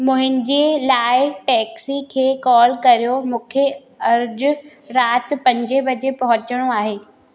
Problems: constant background noise, echo